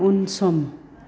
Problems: constant background noise